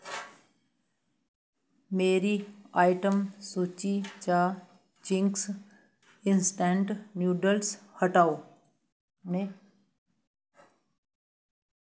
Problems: none marked